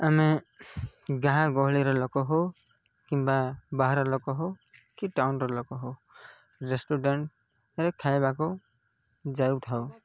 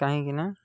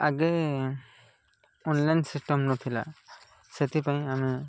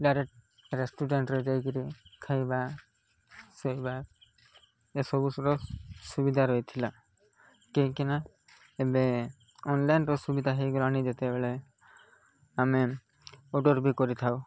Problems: none marked